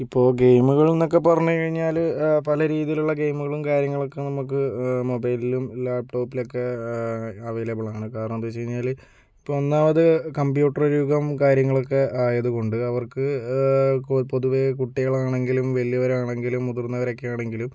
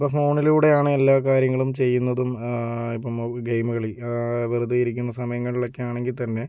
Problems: none marked